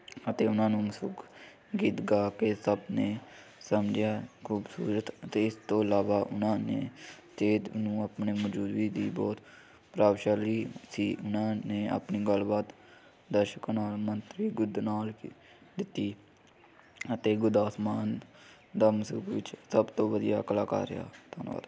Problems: none marked